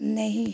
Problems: constant background noise, low volume